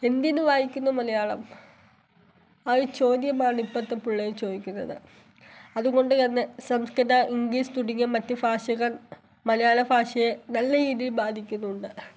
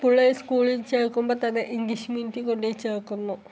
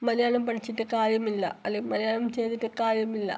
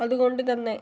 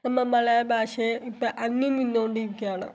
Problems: background sounds at intervals